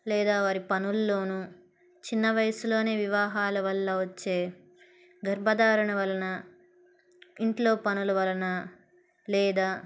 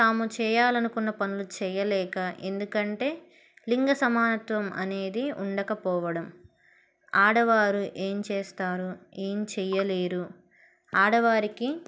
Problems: none marked